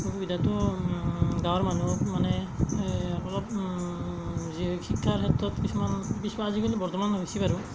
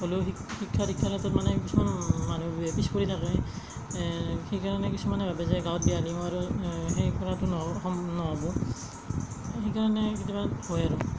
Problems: background sounds at intervals, low volume